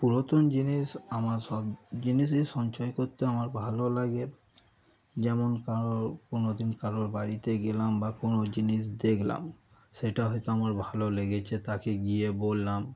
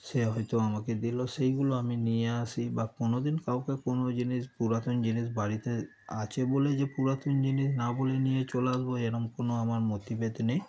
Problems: none marked